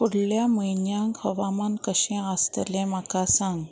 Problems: constant background noise